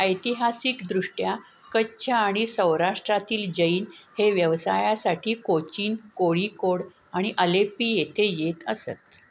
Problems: constant background noise